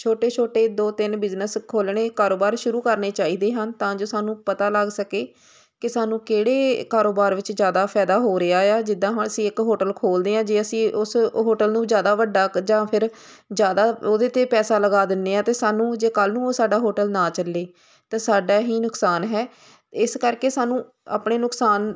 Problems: constant background noise